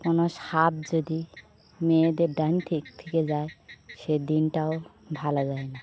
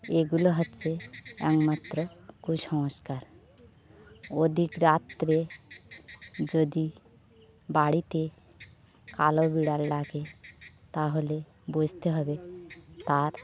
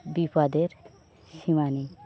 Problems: background sounds at intervals